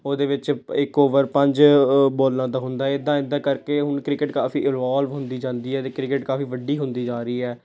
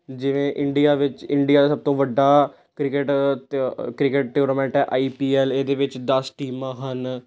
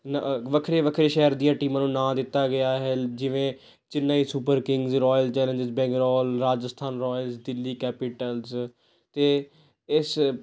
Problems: none marked